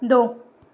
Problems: none marked